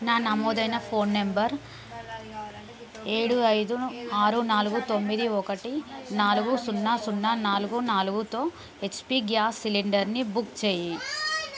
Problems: background conversations at intervals